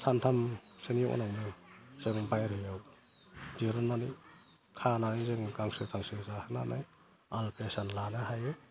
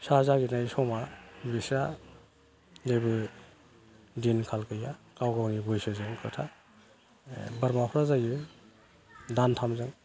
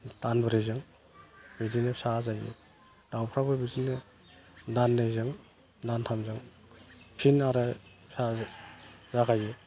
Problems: none marked